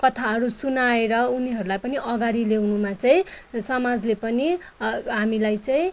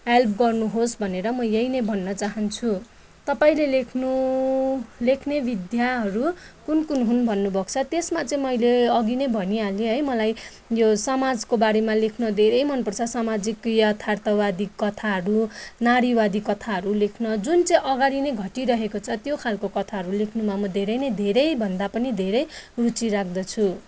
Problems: none marked